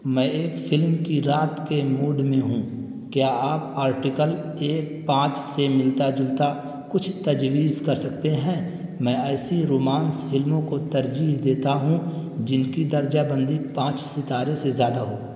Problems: constant background noise